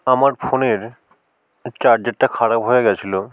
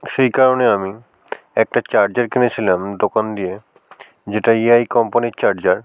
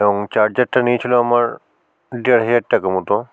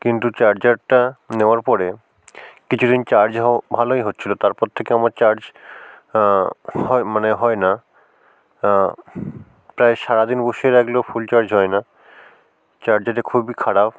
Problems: background sounds at intervals